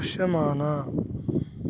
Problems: constant background noise